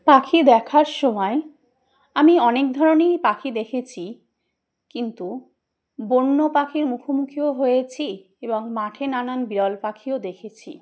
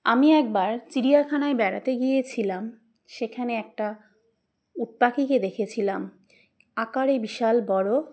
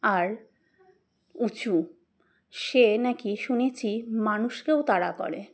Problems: none marked